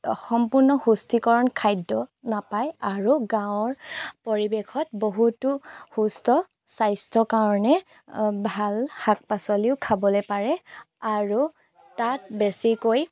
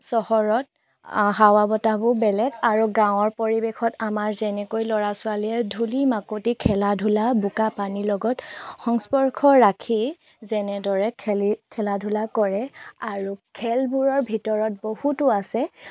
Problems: background sounds at intervals